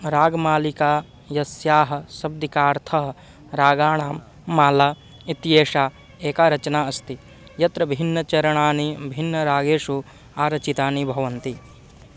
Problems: background sounds at intervals